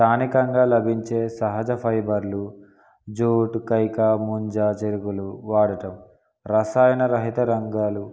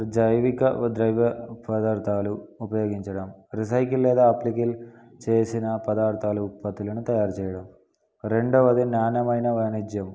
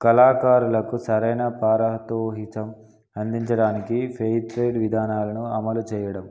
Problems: none marked